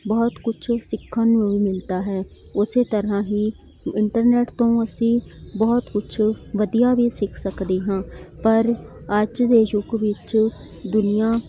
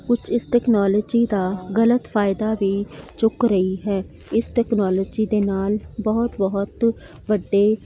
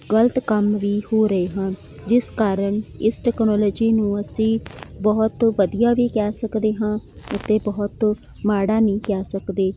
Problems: none marked